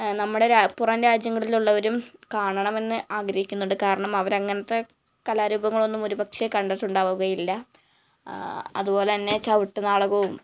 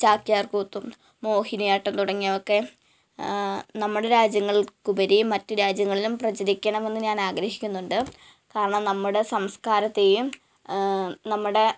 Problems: none marked